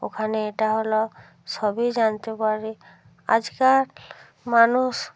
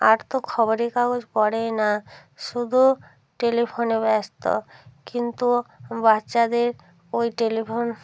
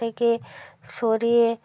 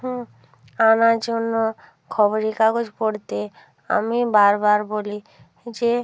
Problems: none marked